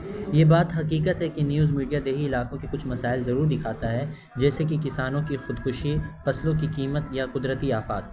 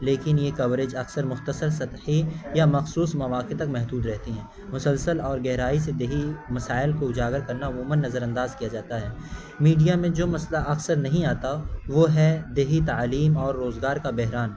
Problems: constant background noise